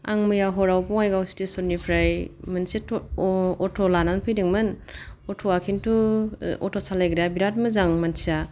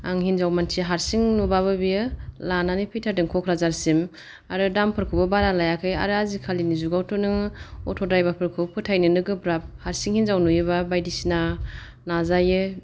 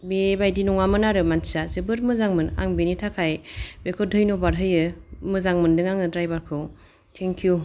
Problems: none marked